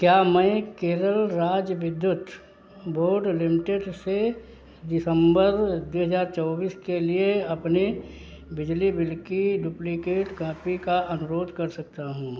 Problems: background sounds at intervals